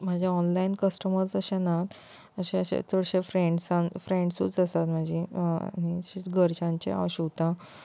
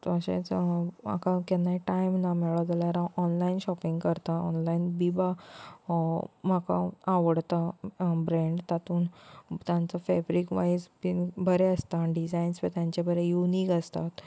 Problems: constant background noise